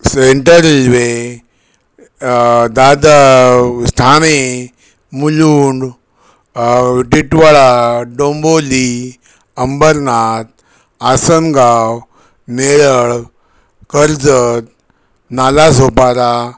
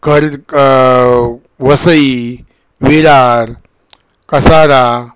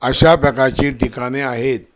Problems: none marked